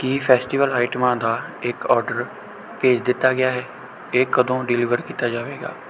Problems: none marked